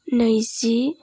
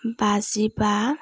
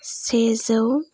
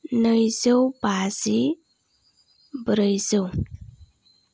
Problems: low volume